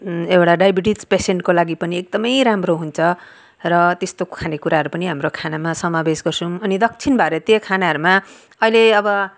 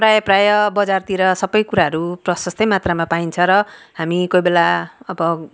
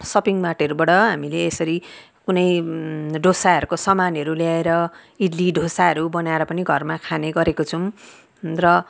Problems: none marked